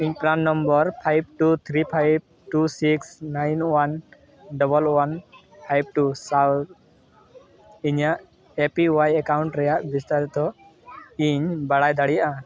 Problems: background sounds at intervals